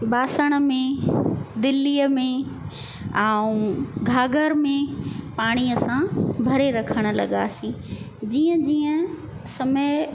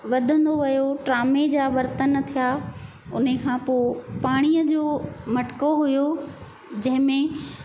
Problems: constant background noise, echo